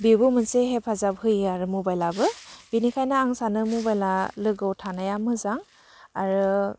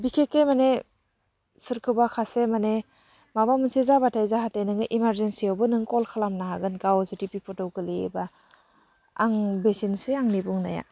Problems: low volume